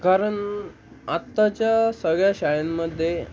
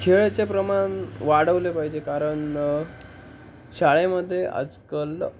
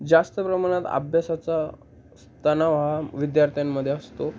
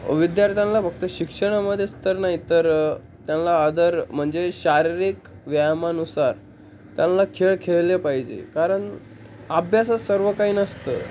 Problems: constant background noise, background conversations at intervals